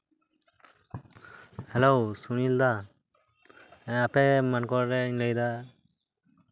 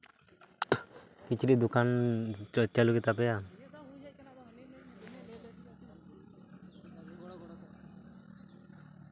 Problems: constant background noise, continuous background conversations